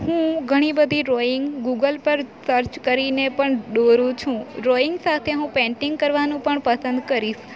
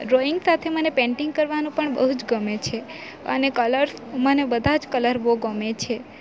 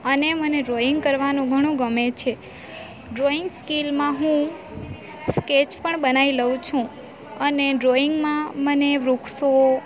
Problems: constant background noise